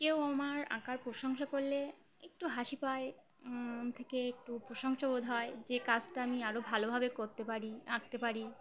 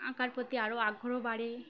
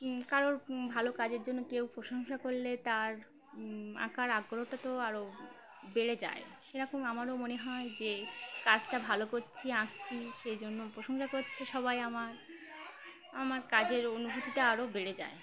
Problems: constant background noise